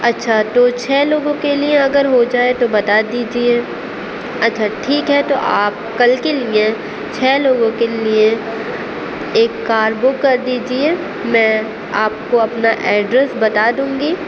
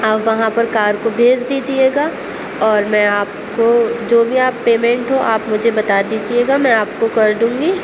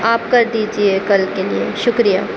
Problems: constant background noise